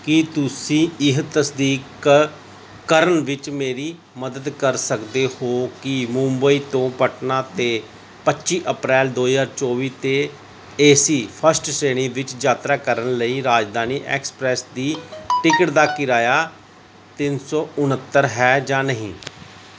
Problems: background sounds at intervals